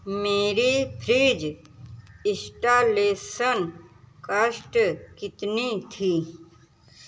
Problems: none marked